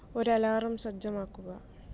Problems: low volume